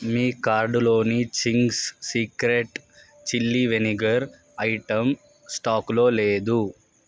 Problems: constant background noise